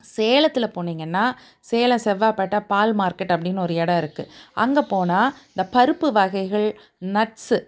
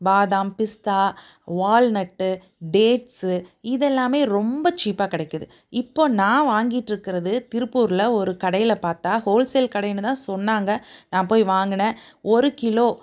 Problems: none marked